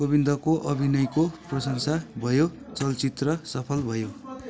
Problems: continuous background conversations